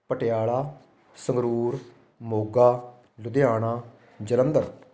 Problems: continuous background conversations